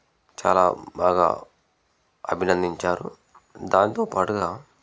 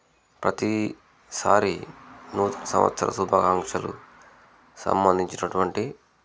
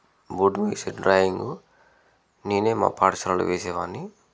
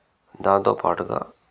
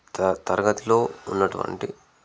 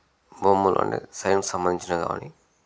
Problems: none marked